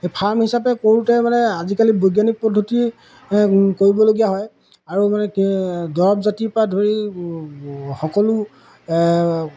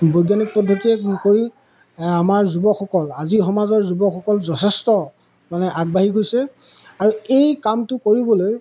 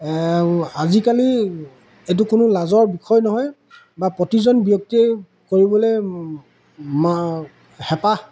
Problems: none marked